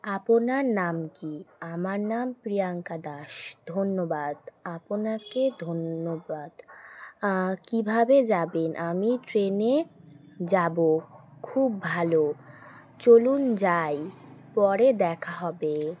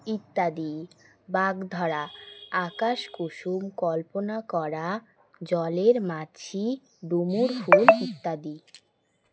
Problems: constant background noise